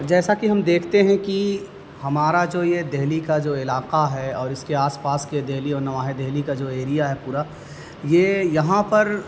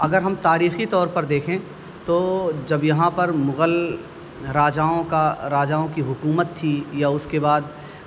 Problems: constant background noise